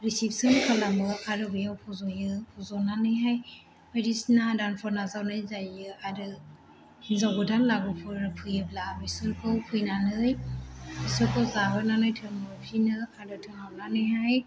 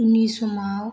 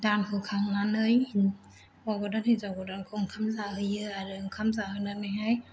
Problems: echo